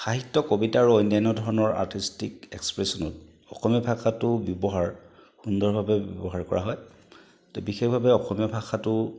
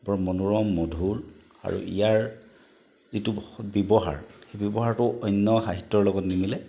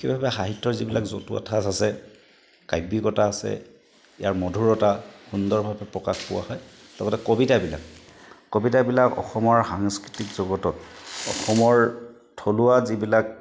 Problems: background sounds at intervals